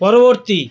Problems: constant background noise, continuous background conversations